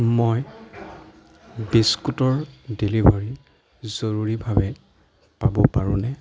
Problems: background conversations at intervals